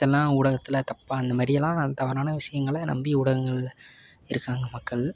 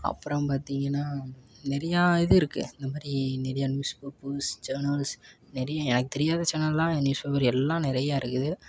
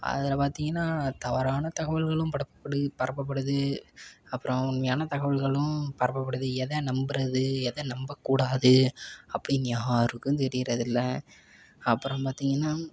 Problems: background sounds at intervals